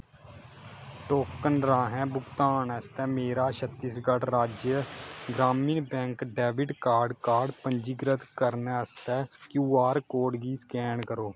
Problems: background sounds at intervals